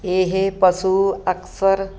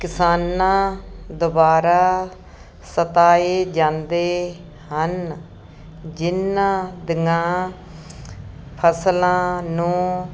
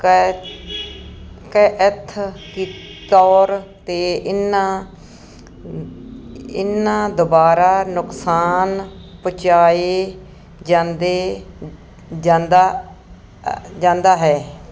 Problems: none marked